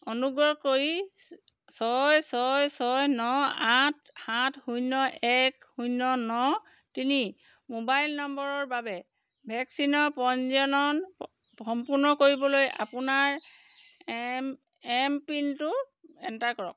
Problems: background sounds at intervals